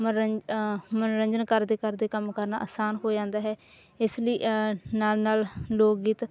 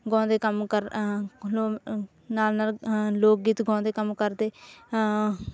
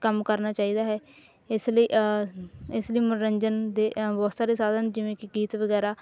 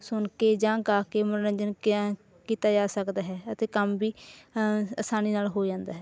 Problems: none marked